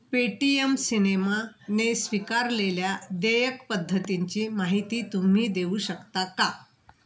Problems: constant background noise